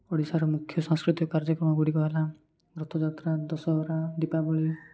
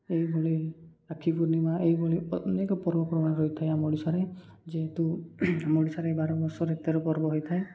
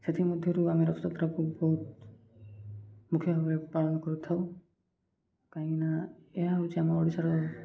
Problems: none marked